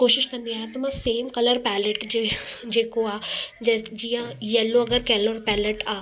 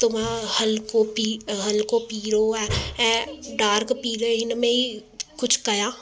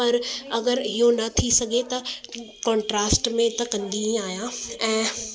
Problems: constant background noise, echo